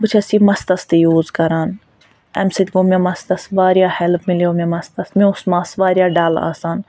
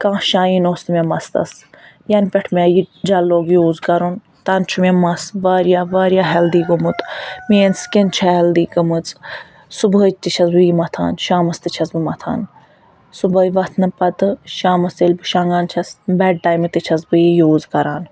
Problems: background sounds at intervals